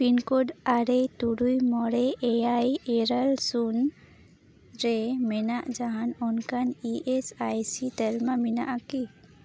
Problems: background sounds at intervals